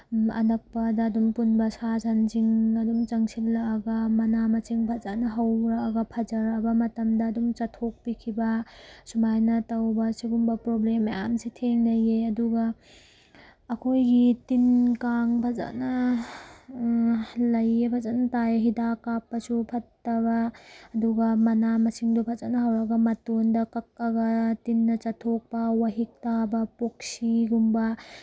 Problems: background sounds at intervals